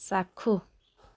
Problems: none marked